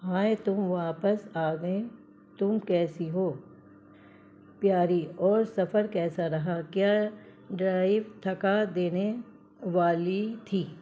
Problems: constant background noise